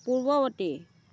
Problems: constant background noise, continuous background conversations